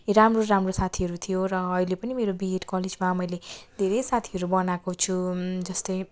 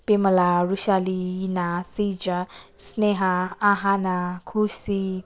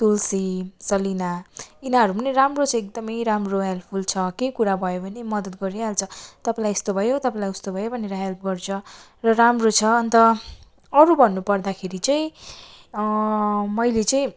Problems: background sounds at intervals